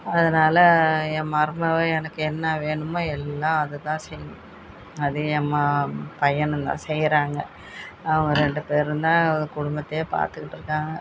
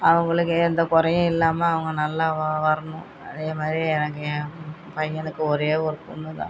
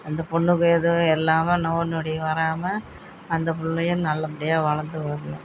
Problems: constant background noise, background conversations at intervals